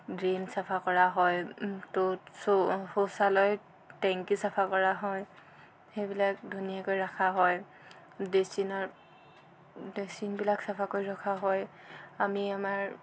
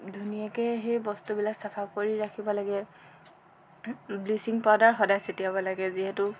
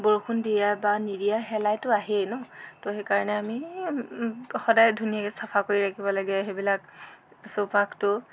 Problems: constant background noise